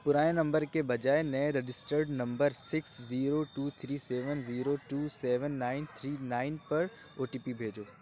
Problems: none marked